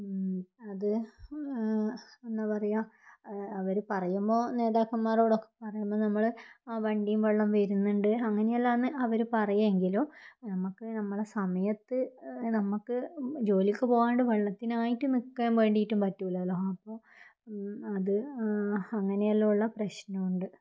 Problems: low volume